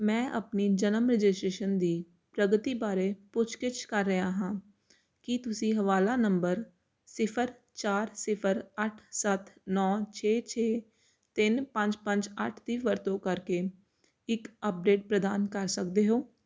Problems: constant background noise